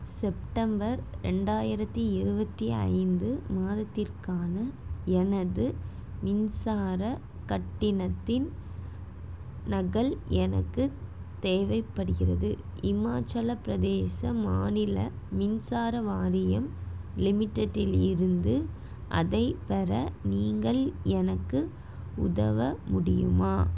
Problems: none marked